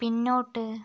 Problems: low volume